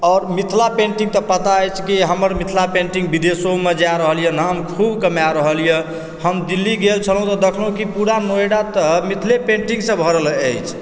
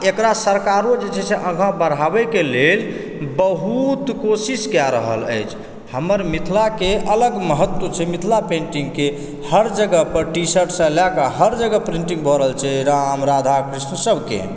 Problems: background sounds at intervals